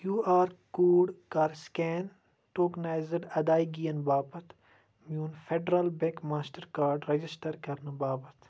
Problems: constant background noise